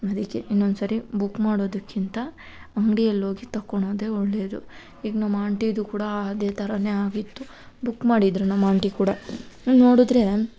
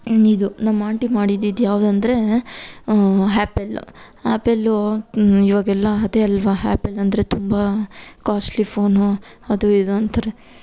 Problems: none marked